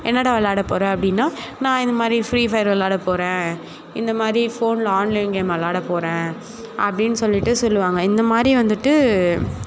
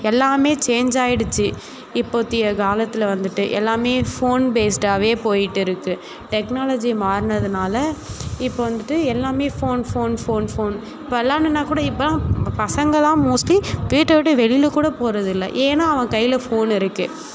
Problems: background conversations at intervals